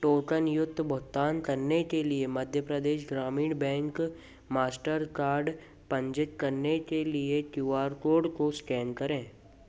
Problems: constant background noise